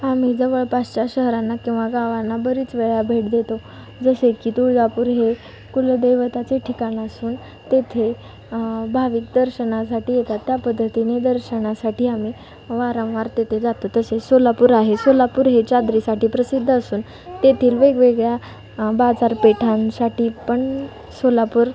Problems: none marked